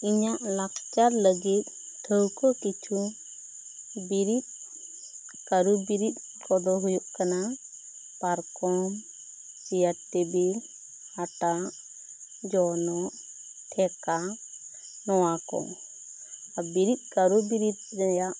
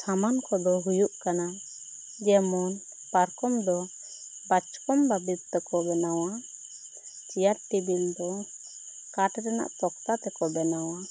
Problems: constant background noise